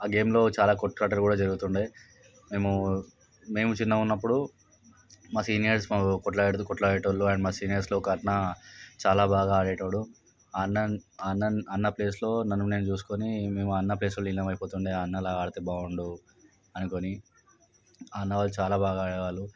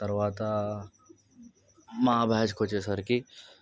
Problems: background sounds at intervals